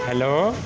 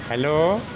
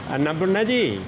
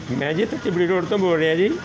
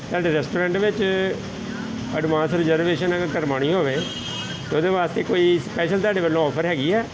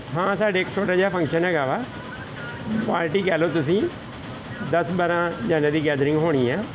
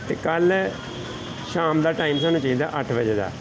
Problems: constant background noise